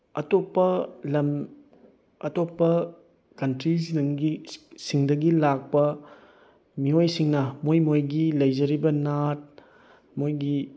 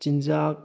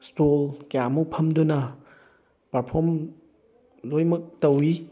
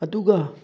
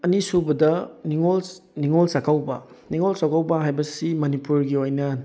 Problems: none marked